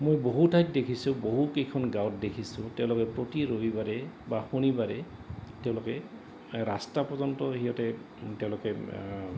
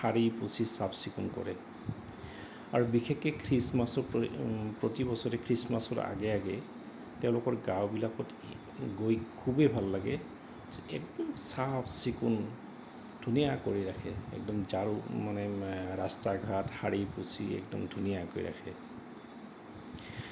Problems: none marked